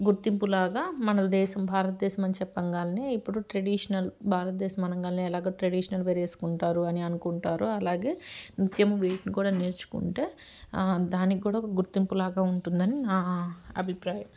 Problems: background sounds at intervals